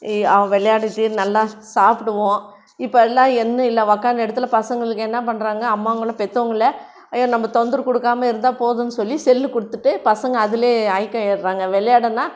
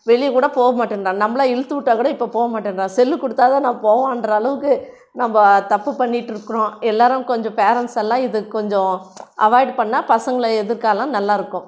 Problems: none marked